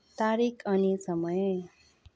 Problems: background conversations at intervals